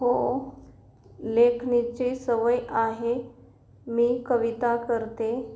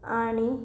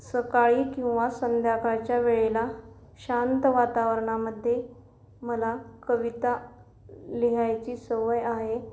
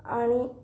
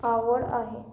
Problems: none marked